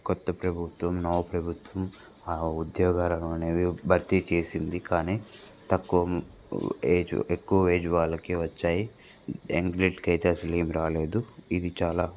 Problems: constant background noise